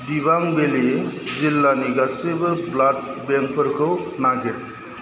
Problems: constant background noise